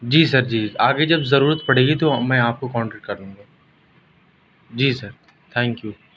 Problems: constant background noise, background conversations at intervals